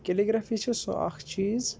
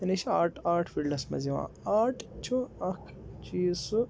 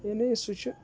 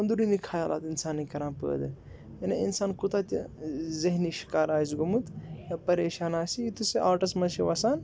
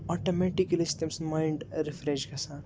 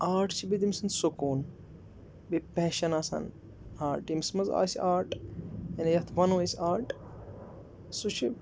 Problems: background sounds at intervals